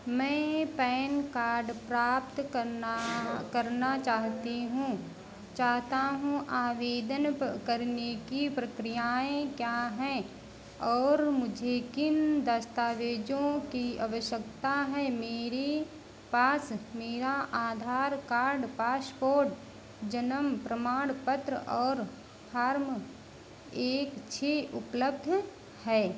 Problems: constant background noise